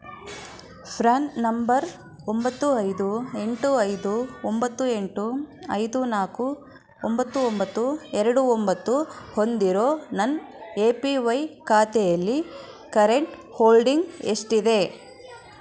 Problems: constant background noise